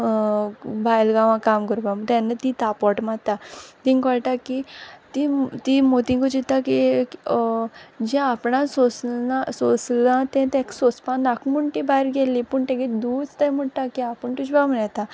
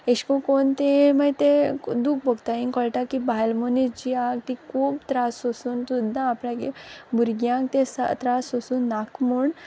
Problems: constant background noise